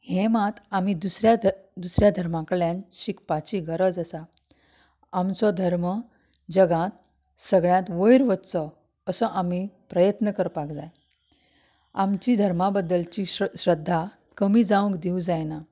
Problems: none marked